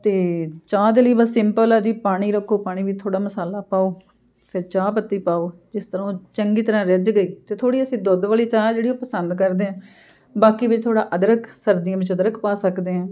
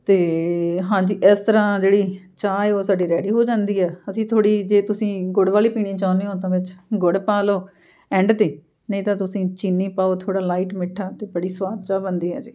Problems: none marked